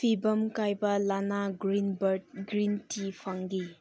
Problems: low volume